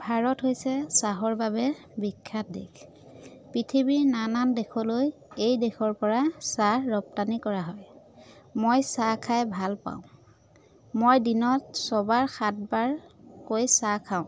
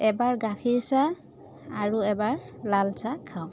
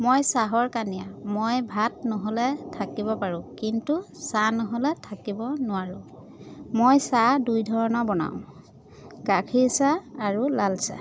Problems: constant background noise, background conversations at intervals